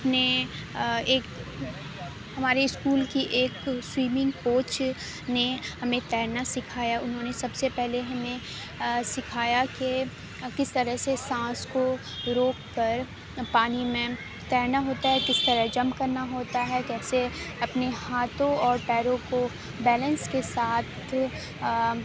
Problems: constant background noise